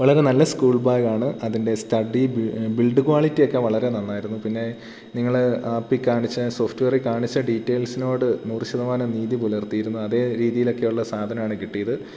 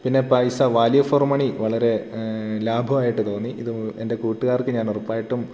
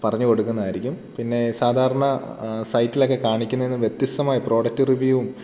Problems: none marked